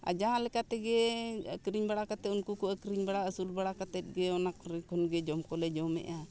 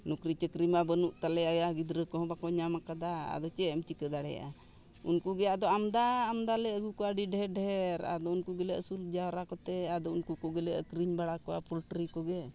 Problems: background sounds at intervals, background conversations at intervals